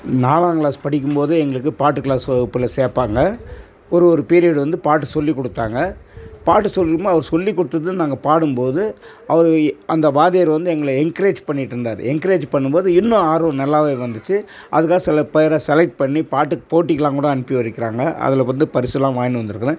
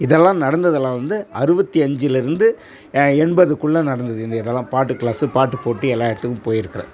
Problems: constant background noise